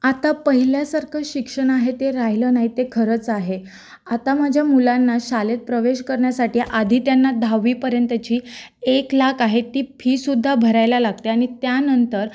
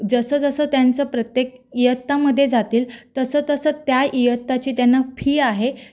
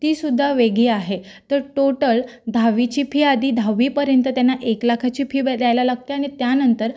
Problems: background sounds at intervals